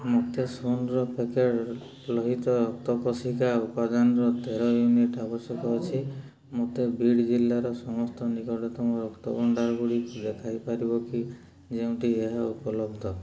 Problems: low volume